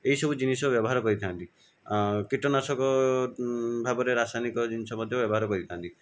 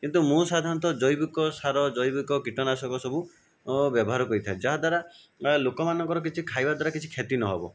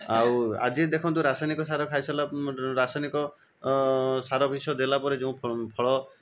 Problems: none marked